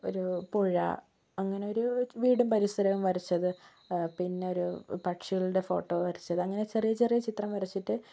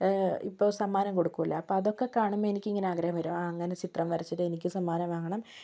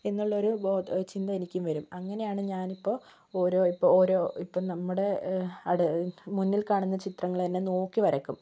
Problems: none marked